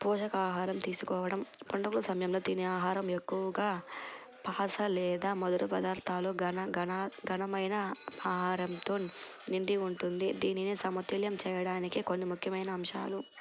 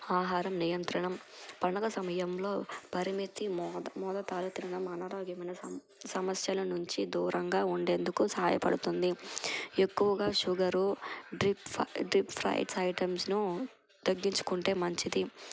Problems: none marked